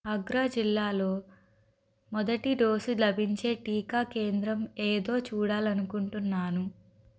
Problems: none marked